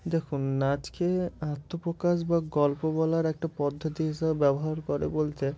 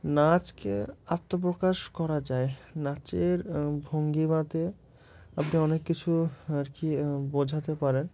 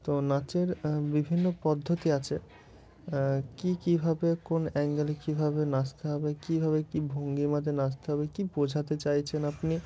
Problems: none marked